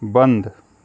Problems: none marked